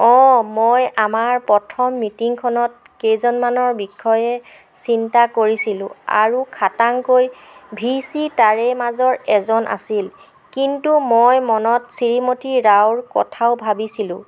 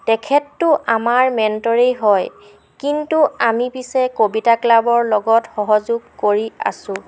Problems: constant background noise